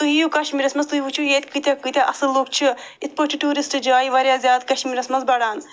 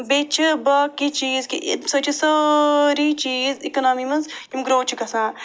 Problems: background sounds at intervals